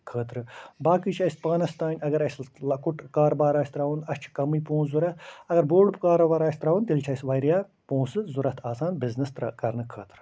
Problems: constant background noise